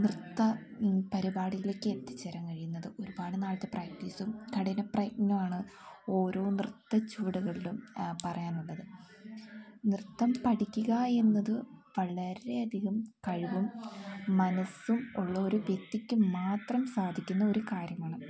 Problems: background sounds at intervals